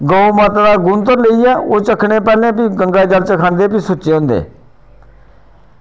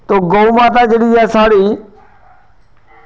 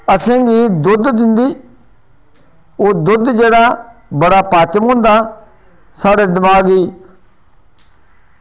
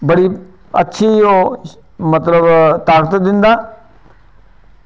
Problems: none marked